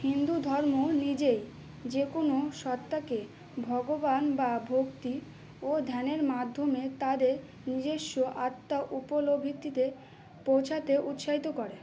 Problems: constant background noise, low volume